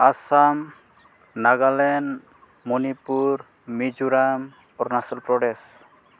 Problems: none marked